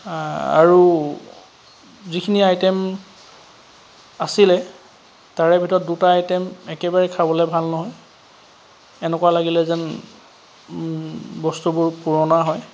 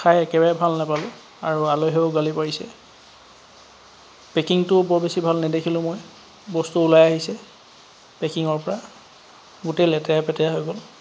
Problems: constant background noise